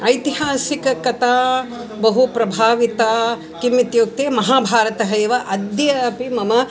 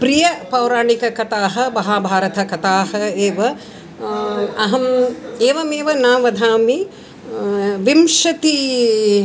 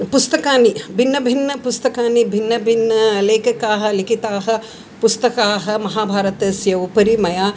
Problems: constant background noise